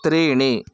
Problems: background sounds at intervals